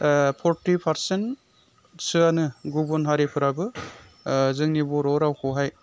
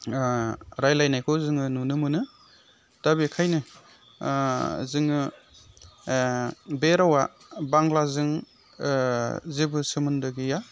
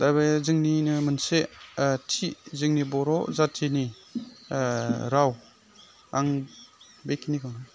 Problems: none marked